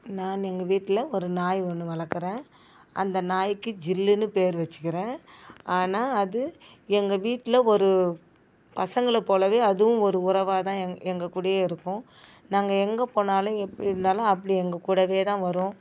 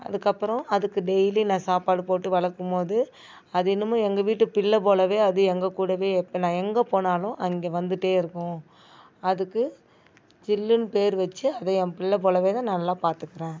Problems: none marked